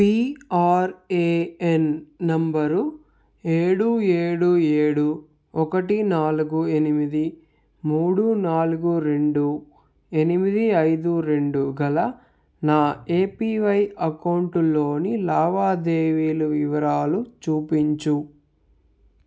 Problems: none marked